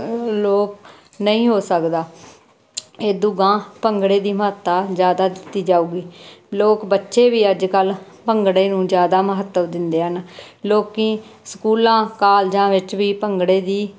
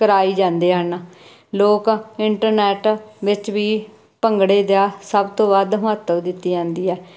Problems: constant background noise